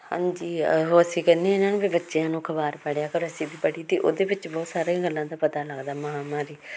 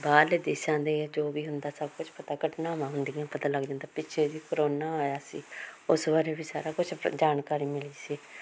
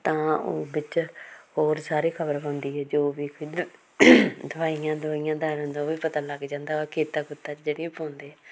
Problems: none marked